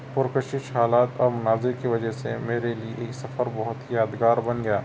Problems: constant background noise